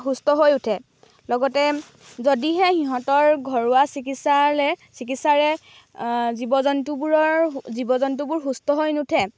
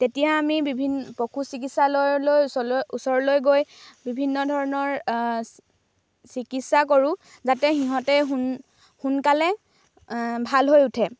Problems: none marked